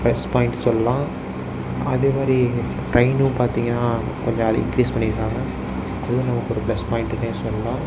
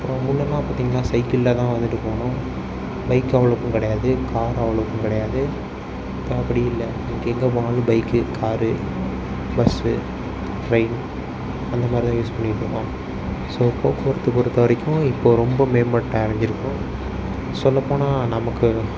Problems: background sounds at intervals